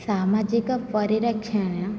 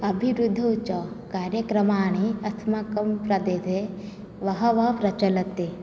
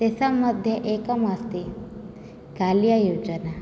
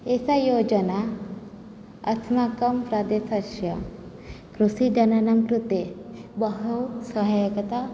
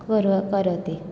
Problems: low volume